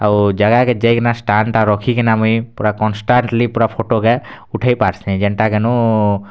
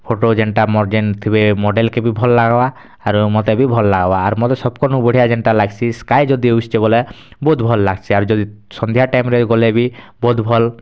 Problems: none marked